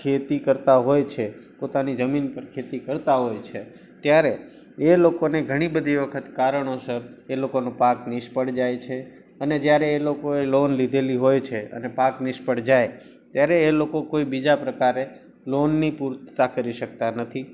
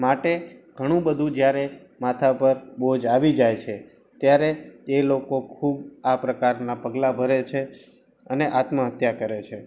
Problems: background sounds at intervals